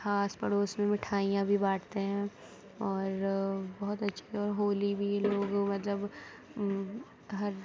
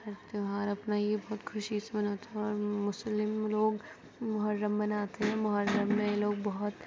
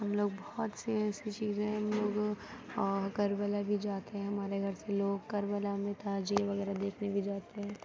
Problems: constant background noise, low volume